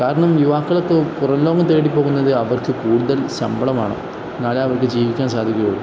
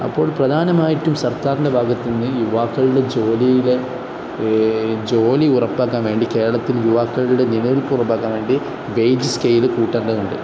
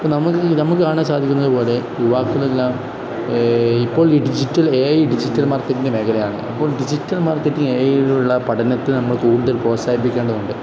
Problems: constant background noise